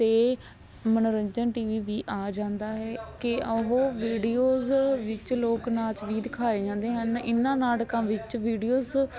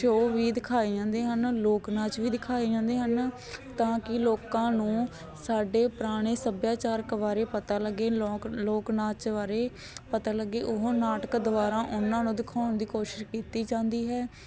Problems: constant background noise